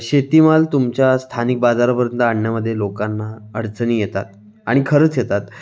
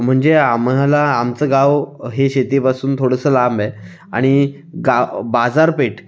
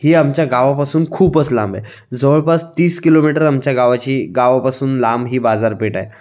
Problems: background sounds at intervals, background conversations at intervals